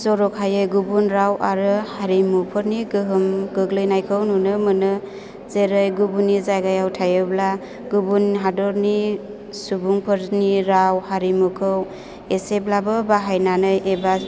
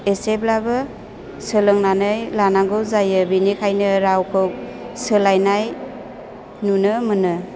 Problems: constant background noise